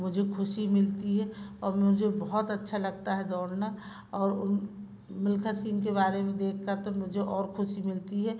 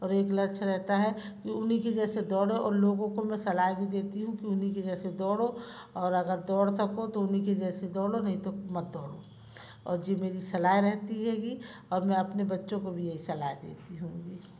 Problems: constant background noise, background conversations at intervals